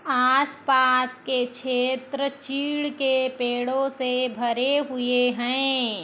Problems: constant background noise